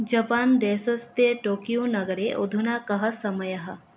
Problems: none marked